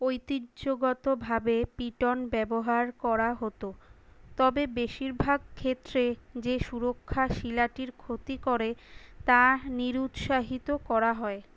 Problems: none marked